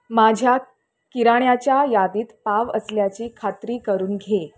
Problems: background sounds at intervals